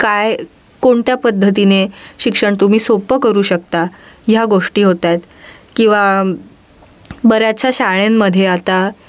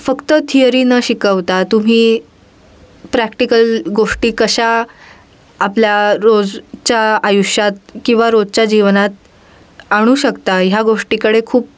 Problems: background sounds at intervals